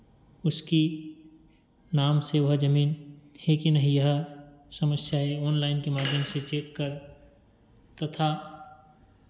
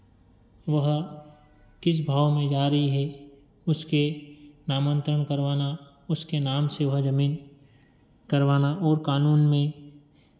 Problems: none marked